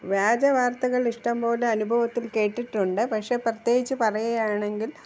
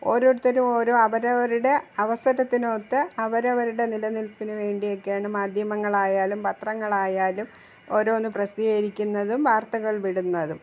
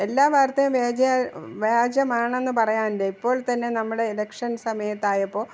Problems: background sounds at intervals